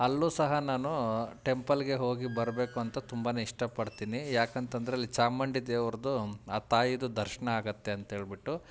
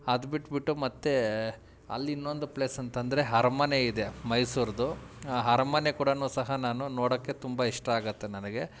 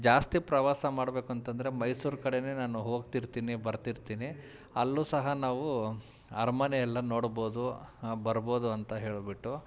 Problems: none marked